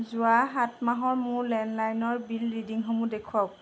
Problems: constant background noise